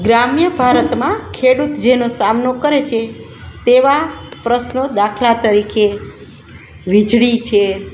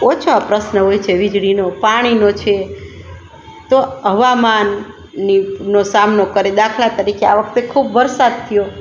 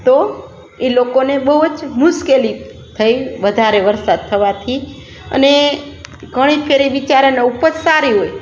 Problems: none marked